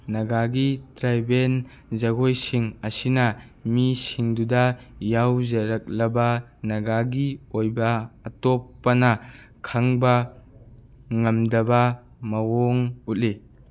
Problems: none marked